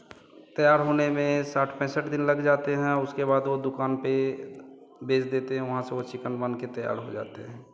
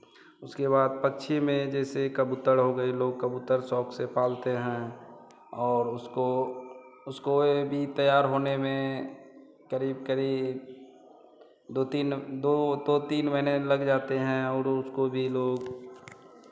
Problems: none marked